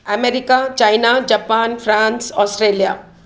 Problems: none marked